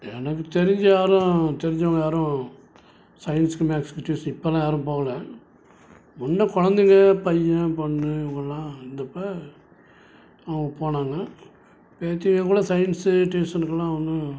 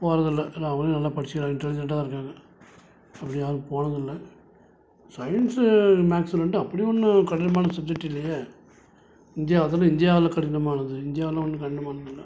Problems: background sounds at intervals